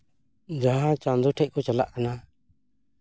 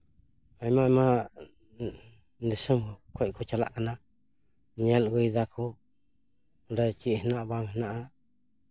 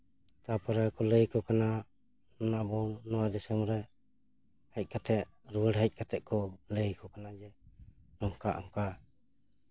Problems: background sounds at intervals